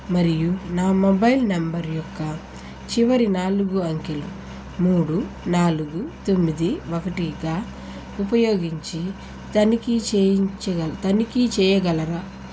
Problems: constant background noise